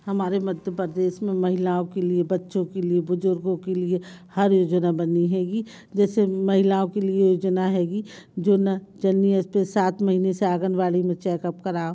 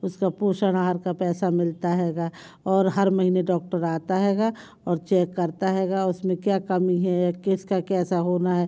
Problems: none marked